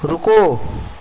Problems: constant background noise